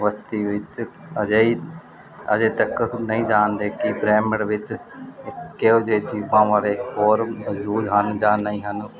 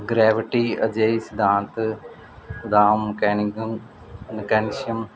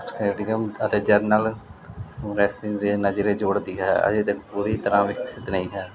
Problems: constant background noise